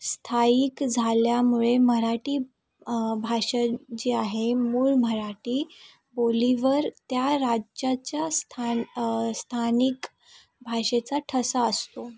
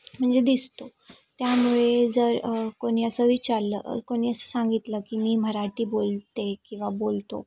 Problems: background sounds at intervals, background conversations at intervals